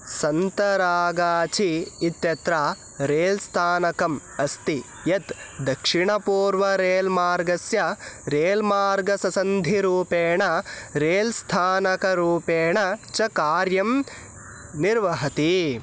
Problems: constant background noise